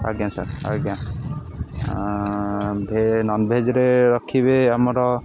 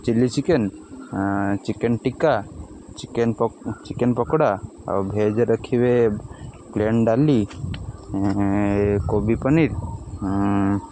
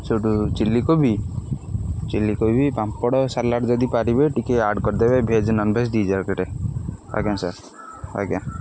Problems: none marked